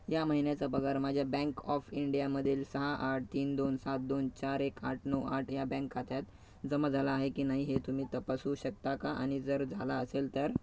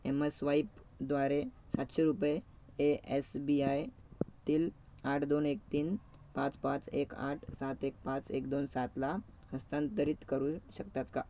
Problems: background sounds at intervals, background conversations at intervals